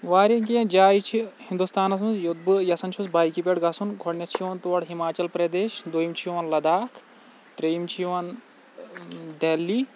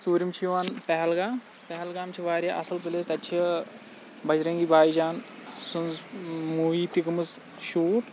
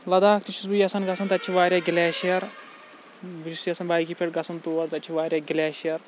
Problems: none marked